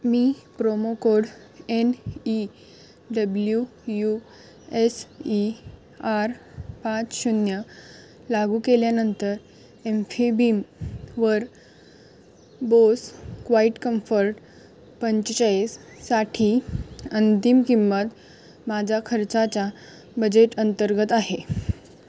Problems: background sounds at intervals